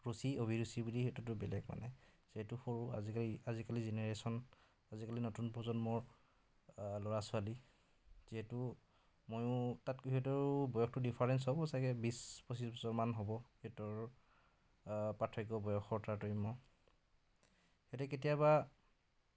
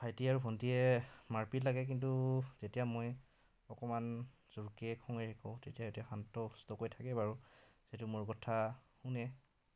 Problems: background conversations at intervals